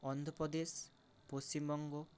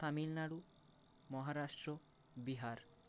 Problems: none marked